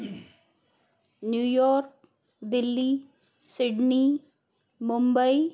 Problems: constant background noise, background conversations at intervals